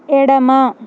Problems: constant background noise